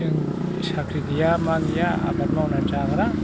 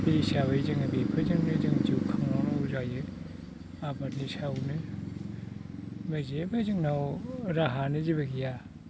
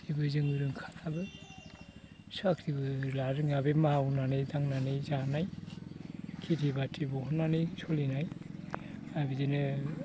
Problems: constant background noise